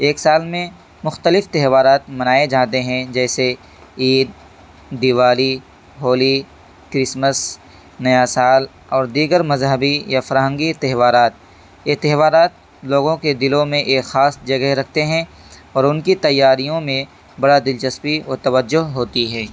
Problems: constant background noise